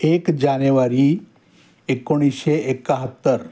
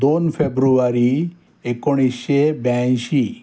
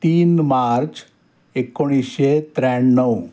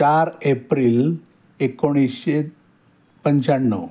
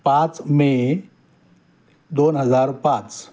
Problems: constant background noise